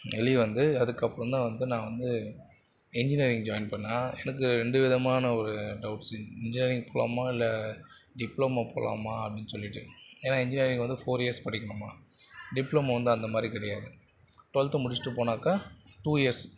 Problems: constant background noise, continuous background conversations